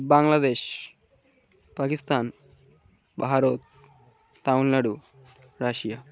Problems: none marked